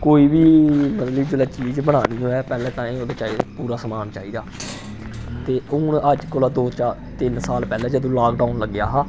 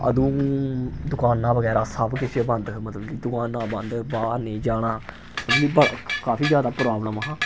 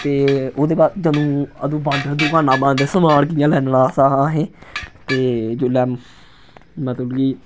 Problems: none marked